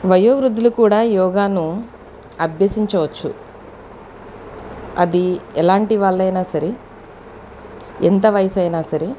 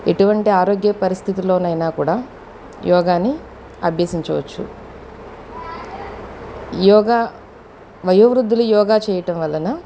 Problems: constant background noise, background conversations at intervals